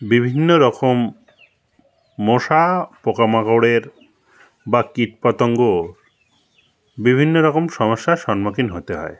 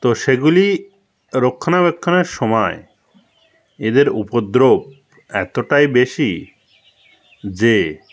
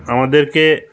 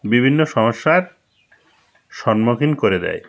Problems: constant background noise, background conversations at intervals